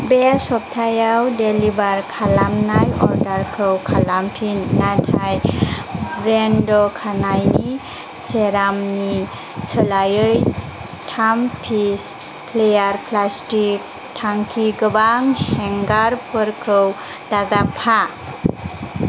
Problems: constant background noise